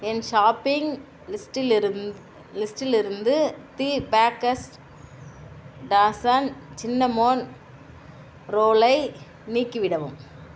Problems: constant background noise